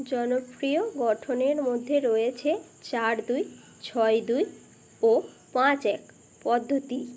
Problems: constant background noise